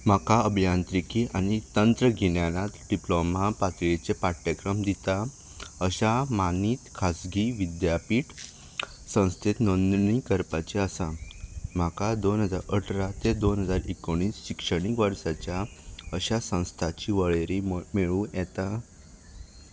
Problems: background sounds at intervals